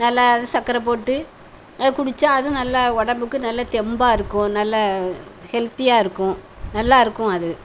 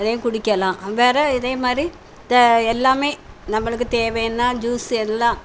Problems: none marked